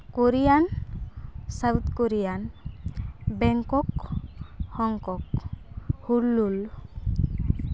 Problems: constant background noise